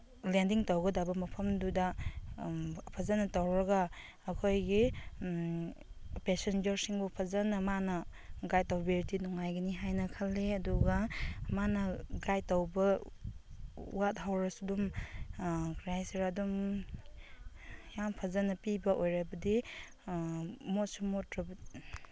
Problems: constant background noise